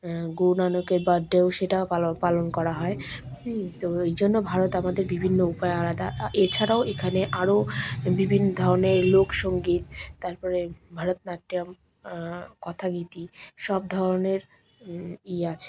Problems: constant background noise